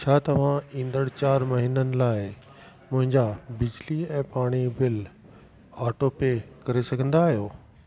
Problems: constant background noise